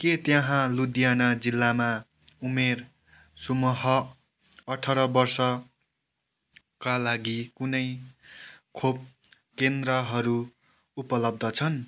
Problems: background conversations at intervals